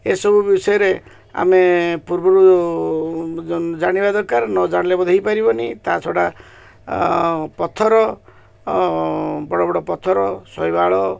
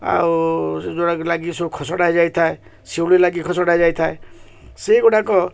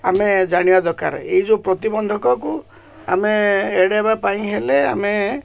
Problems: none marked